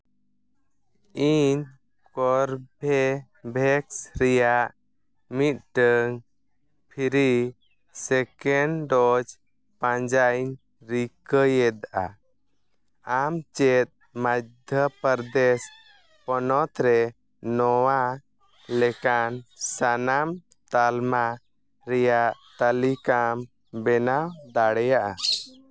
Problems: background sounds at intervals